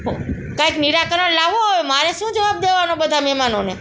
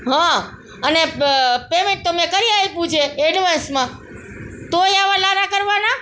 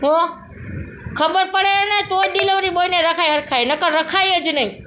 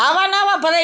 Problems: constant background noise, background conversations at intervals